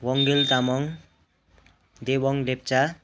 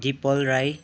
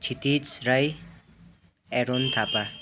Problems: constant background noise, continuous background conversations